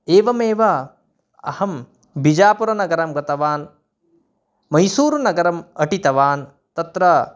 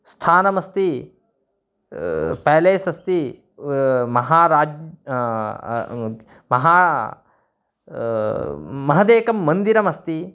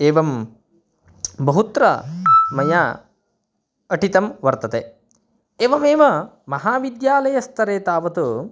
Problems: none marked